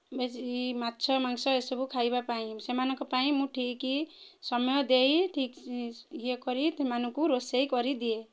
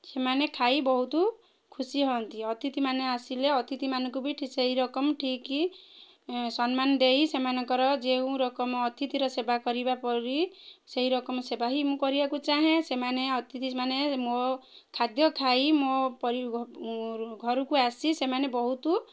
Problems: none marked